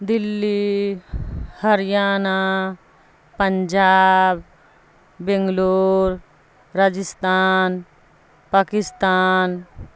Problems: constant background noise